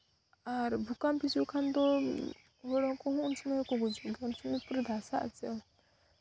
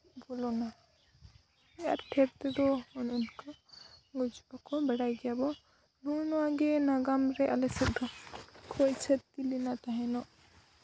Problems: none marked